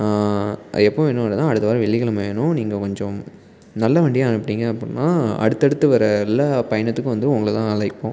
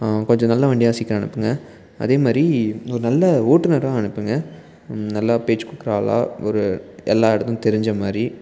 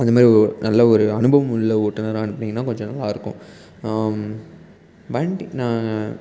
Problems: background conversations at intervals